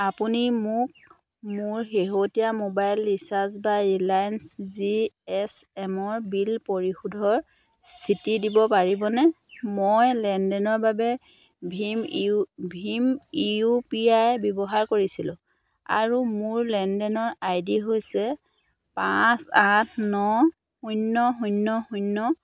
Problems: constant background noise